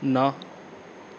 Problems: none marked